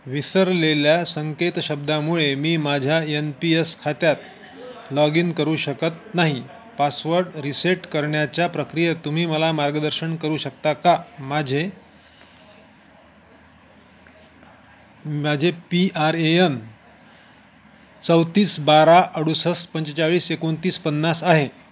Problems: constant background noise, continuous background conversations